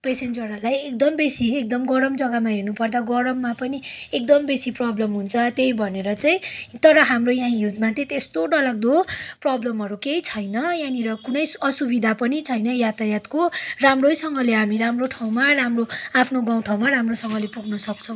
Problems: none marked